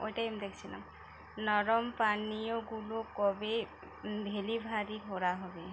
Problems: constant background noise